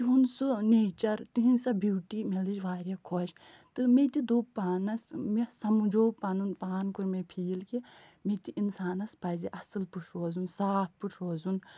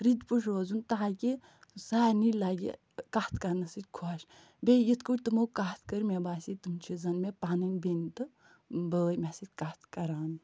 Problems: none marked